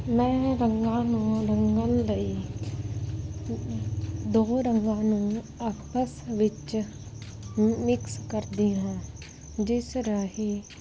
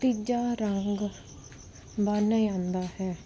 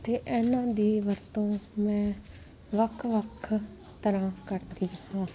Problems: constant background noise